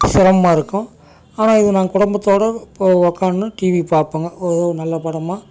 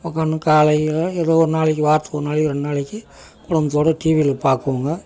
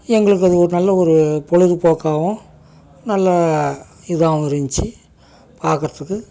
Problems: background sounds at intervals